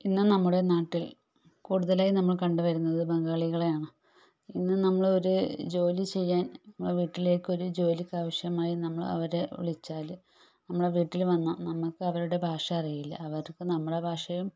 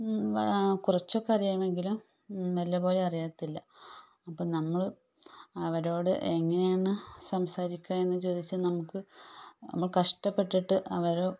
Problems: none marked